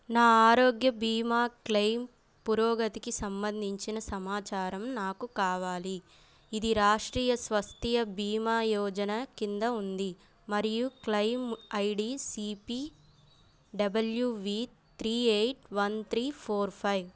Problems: none marked